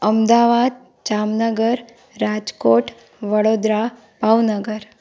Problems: constant background noise